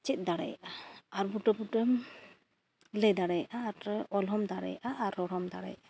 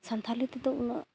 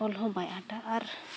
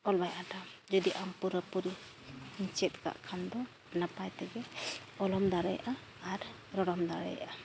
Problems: none marked